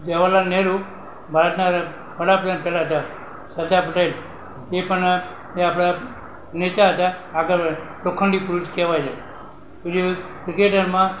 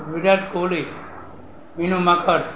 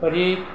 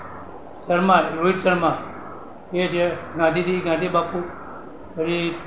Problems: constant background noise